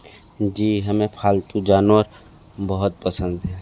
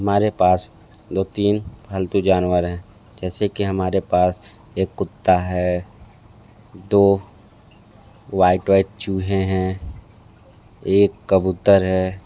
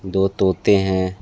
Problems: background sounds at intervals